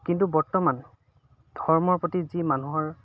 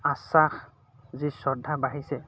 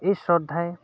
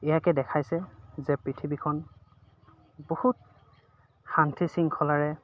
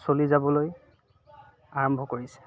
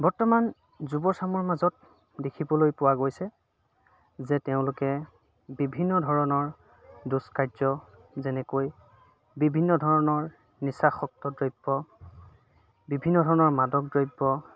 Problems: constant background noise, background conversations at intervals